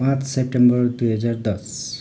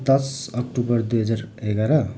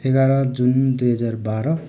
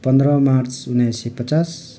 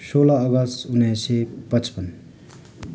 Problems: constant background noise